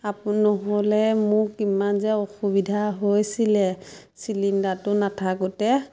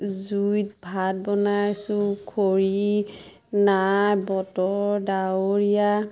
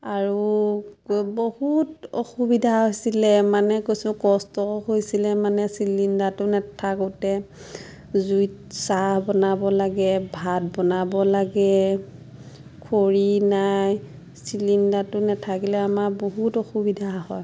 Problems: constant background noise, background conversations at intervals